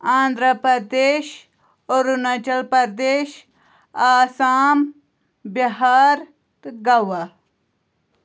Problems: constant background noise